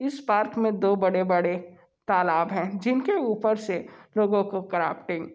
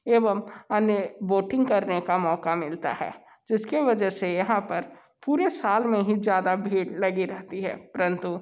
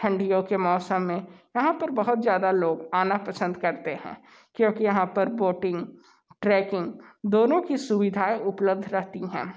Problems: none marked